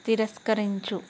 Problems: none marked